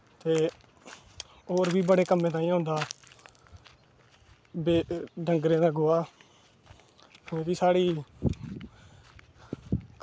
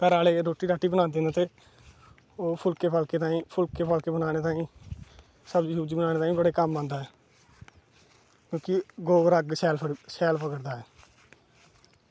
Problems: none marked